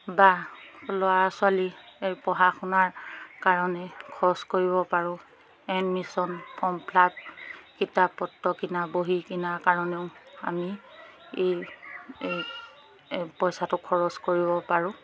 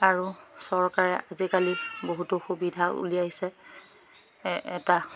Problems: background sounds at intervals, background conversations at intervals